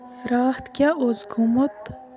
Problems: background conversations at intervals